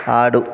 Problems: background conversations at intervals